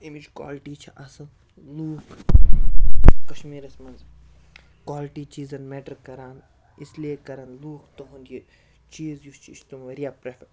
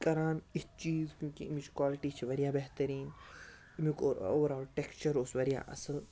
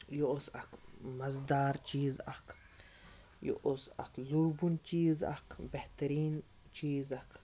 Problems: background sounds at intervals